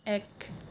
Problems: background sounds at intervals